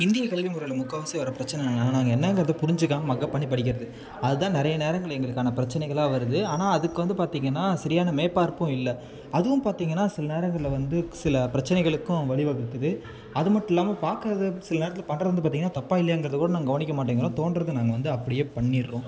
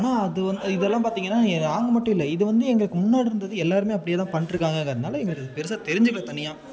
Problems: background conversations at intervals